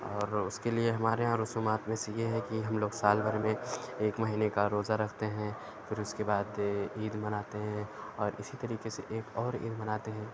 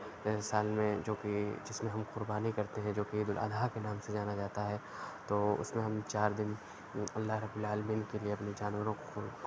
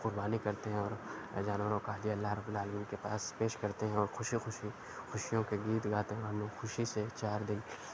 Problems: none marked